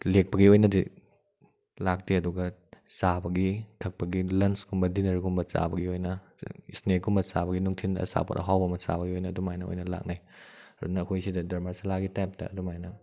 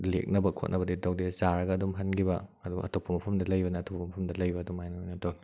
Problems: none marked